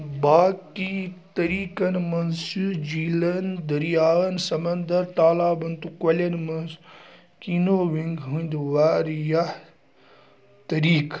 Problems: none marked